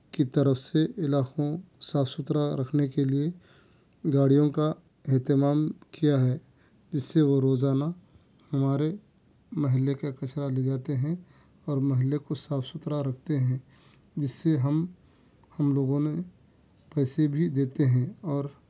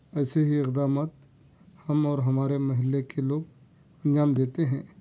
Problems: none marked